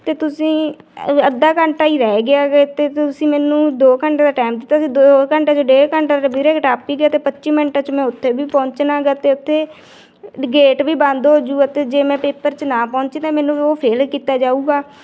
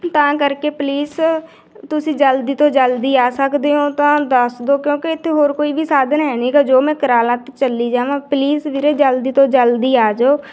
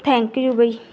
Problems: none marked